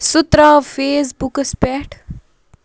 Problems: none marked